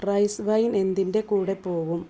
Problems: low volume